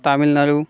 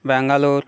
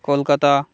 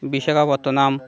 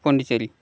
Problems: constant background noise